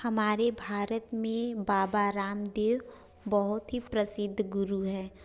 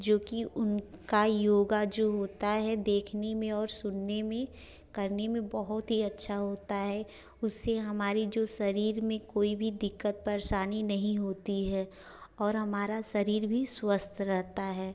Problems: none marked